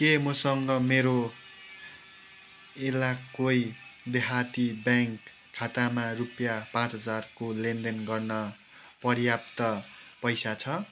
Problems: background sounds at intervals